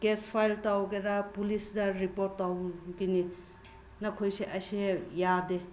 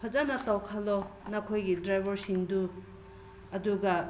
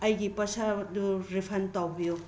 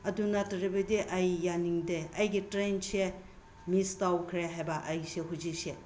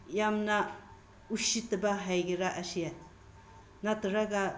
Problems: background sounds at intervals